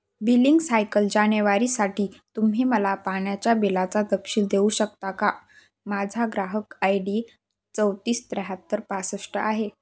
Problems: none marked